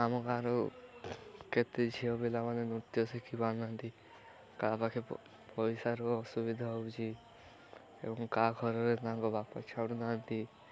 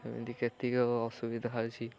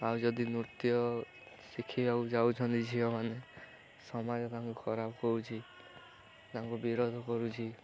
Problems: constant background noise, continuous background conversations